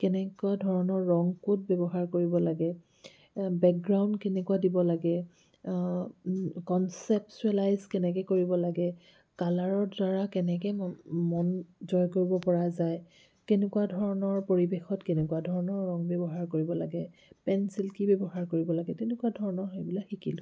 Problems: none marked